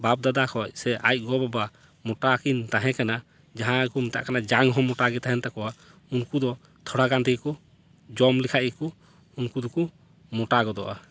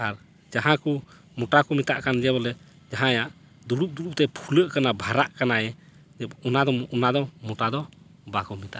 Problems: background sounds at intervals